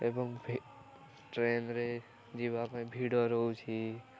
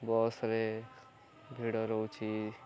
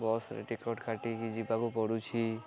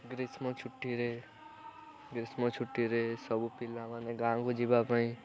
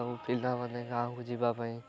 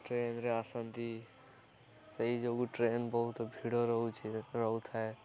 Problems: continuous background conversations